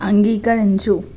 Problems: constant background noise